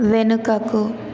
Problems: constant background noise